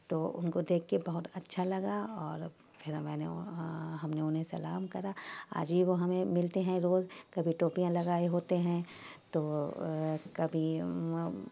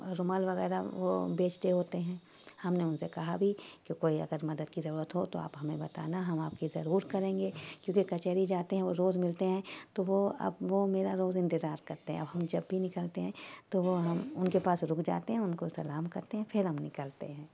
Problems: constant background noise